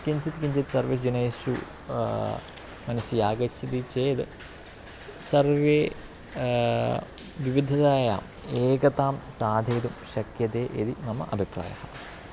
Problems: constant background noise